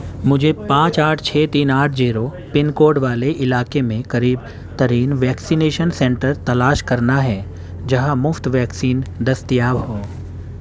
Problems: constant background noise, background conversations at intervals